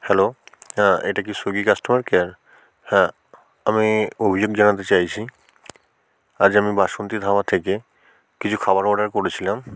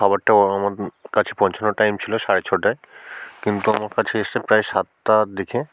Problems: none marked